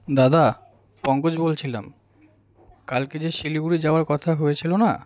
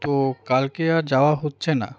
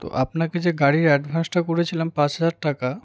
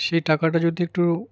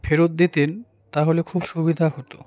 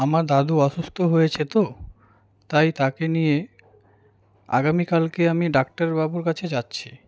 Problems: none marked